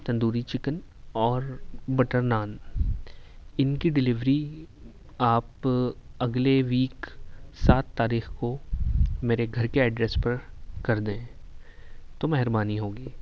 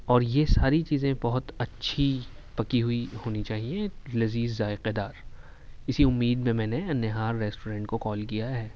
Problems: background sounds at intervals